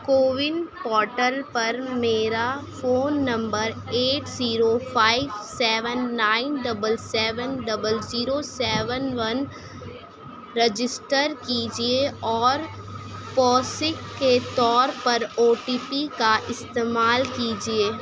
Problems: none marked